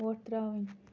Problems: none marked